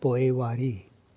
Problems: constant background noise